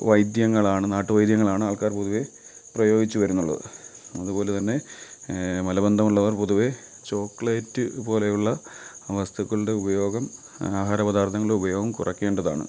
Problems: background sounds at intervals